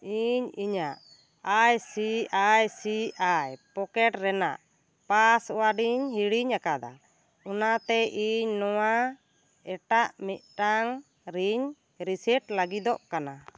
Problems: none marked